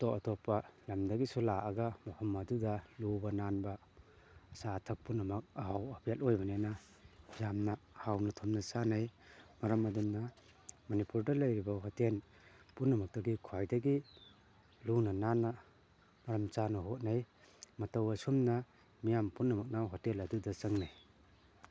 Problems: constant background noise